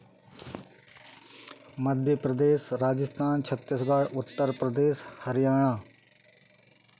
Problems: background sounds at intervals